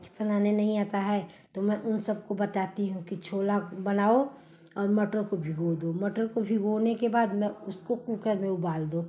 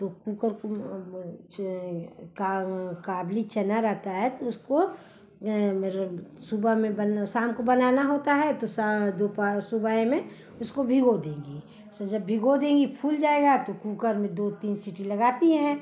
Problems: constant background noise